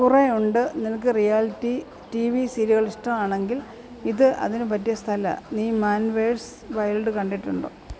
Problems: background sounds at intervals, low volume